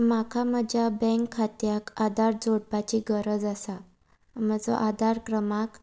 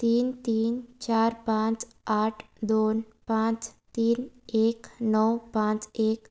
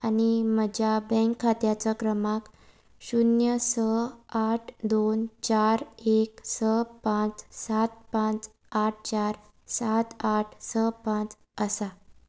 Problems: none marked